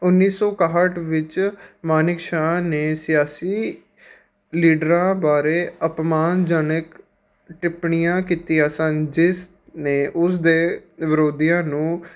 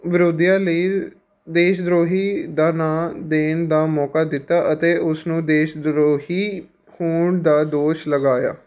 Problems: background sounds at intervals